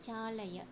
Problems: low volume